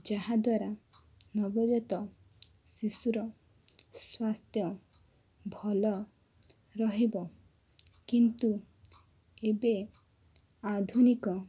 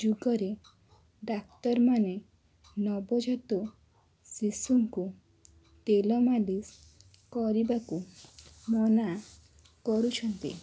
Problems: constant background noise